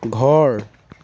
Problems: constant background noise